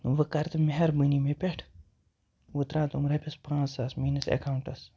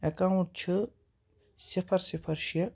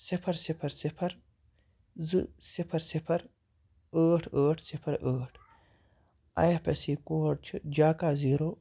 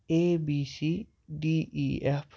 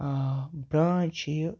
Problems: background sounds at intervals